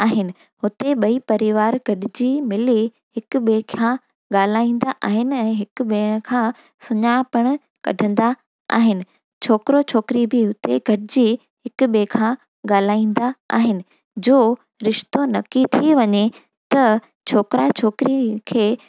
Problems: none marked